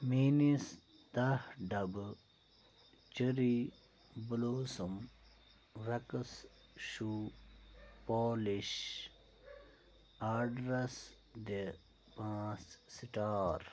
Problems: low volume